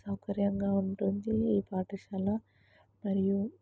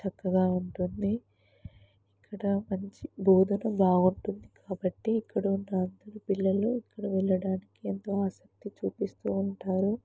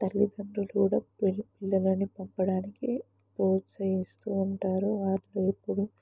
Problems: background sounds at intervals